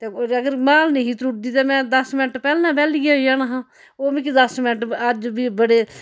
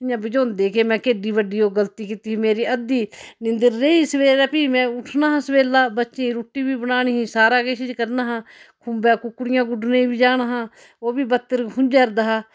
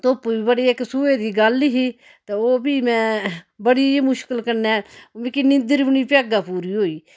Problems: none marked